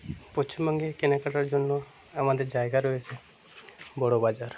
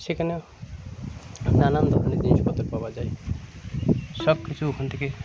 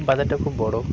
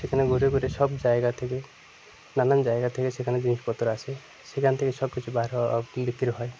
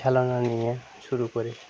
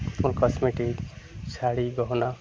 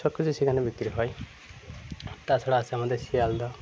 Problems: constant background noise, background conversations at intervals